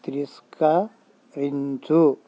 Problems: constant background noise